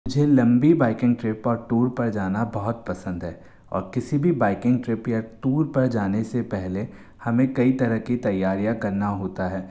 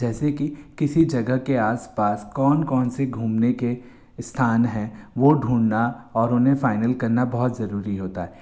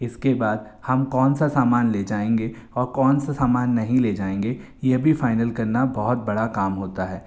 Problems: constant background noise